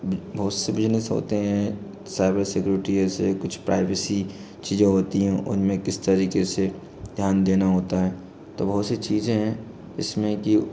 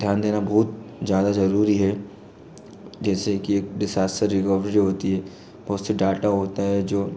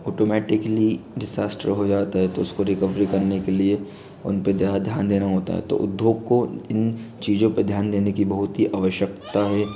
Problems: background sounds at intervals